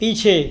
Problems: none marked